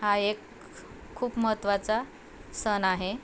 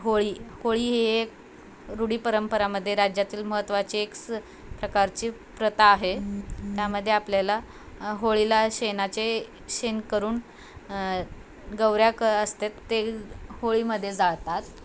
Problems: constant background noise